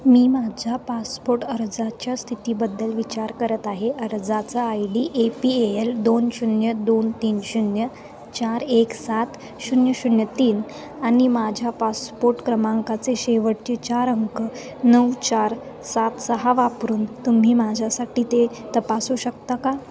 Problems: constant background noise